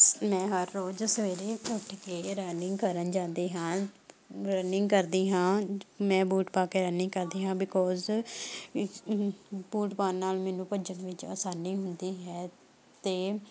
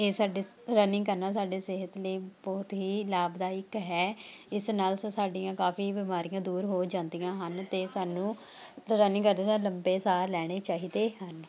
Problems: continuous background conversations